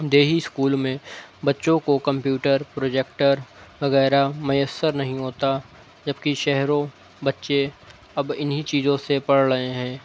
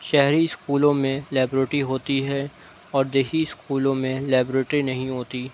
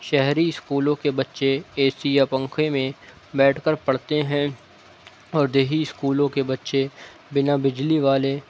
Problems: none marked